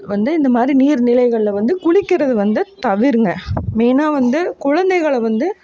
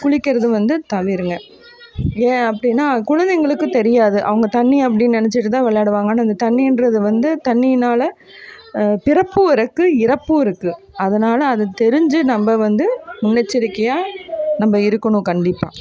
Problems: constant background noise